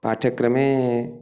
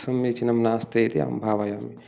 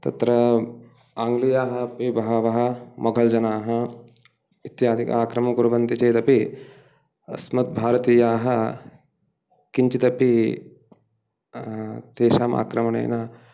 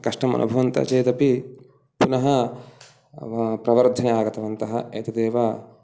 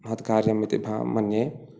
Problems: background sounds at intervals